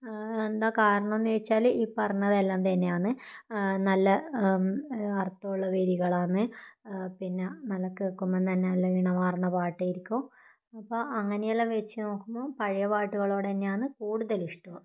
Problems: none marked